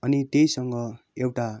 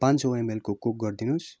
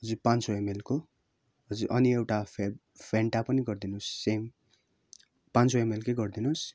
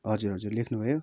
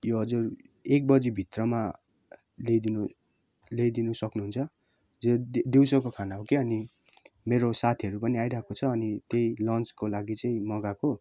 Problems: none marked